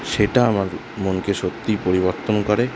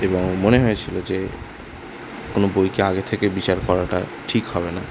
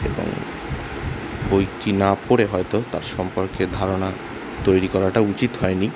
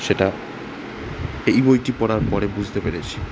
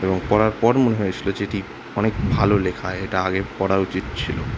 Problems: constant background noise